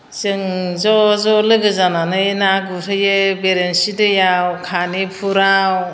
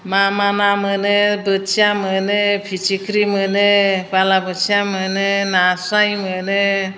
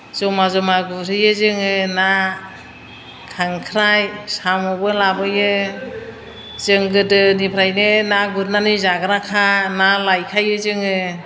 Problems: none marked